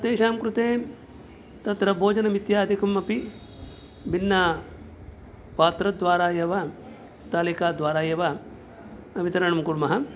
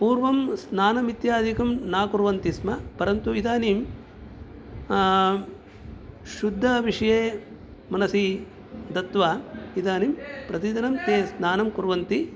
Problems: background sounds at intervals